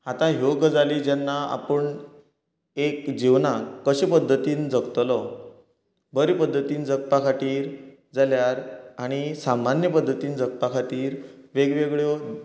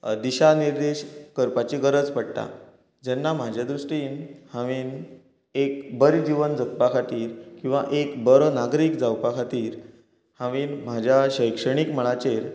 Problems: continuous background conversations